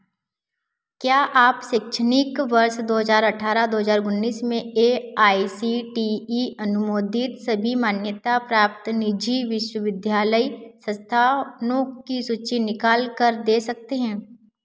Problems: none marked